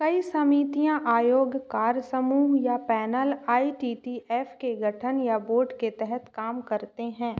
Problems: constant background noise, echo